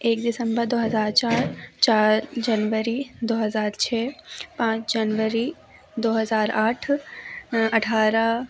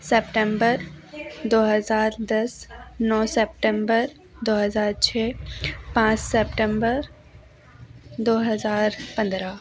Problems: background sounds at intervals, background conversations at intervals